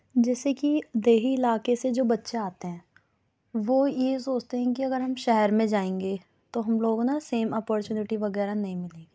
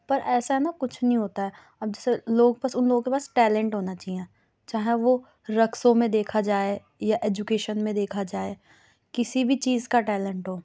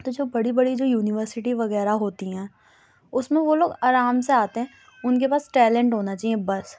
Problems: none marked